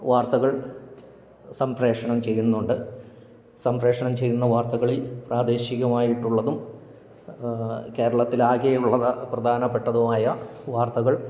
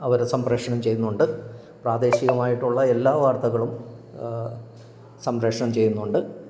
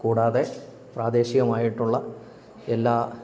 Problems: background sounds at intervals